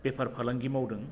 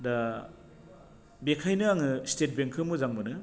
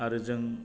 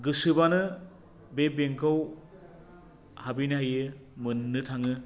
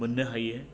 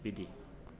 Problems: low volume